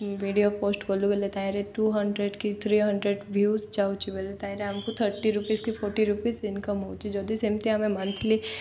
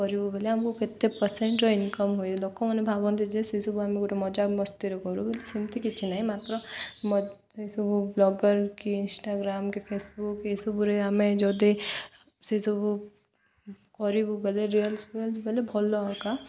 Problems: none marked